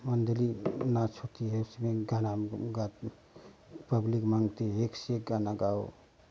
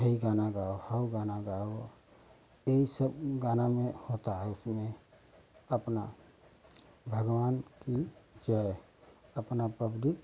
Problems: none marked